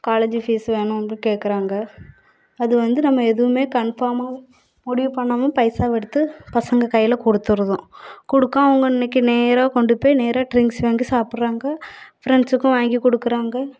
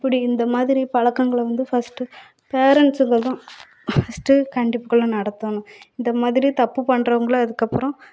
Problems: background sounds at intervals